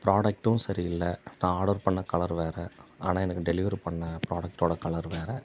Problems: none marked